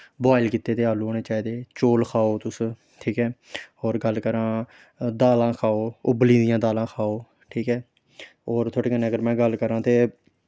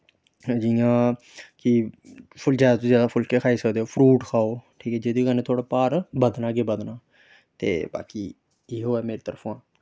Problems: none marked